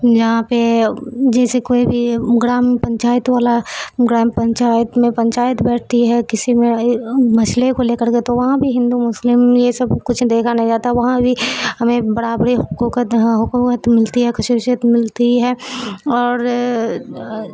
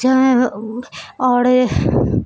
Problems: constant background noise